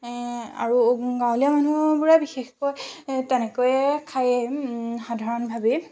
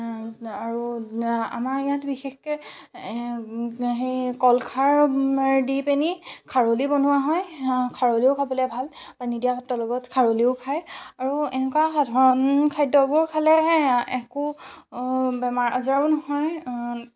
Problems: constant background noise